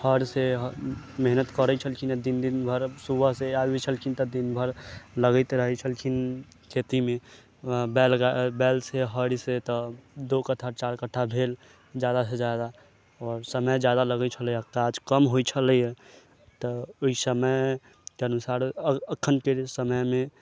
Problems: background sounds at intervals, low volume